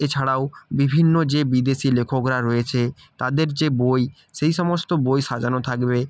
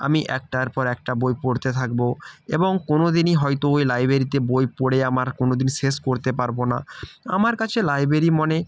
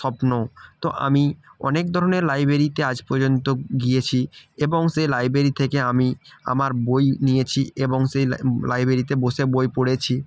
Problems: background sounds at intervals